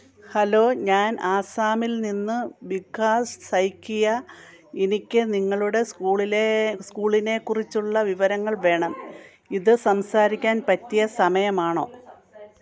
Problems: background conversations at intervals